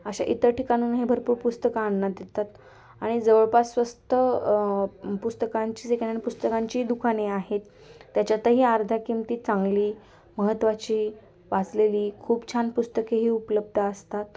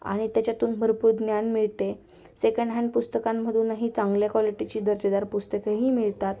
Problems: constant background noise, continuous background conversations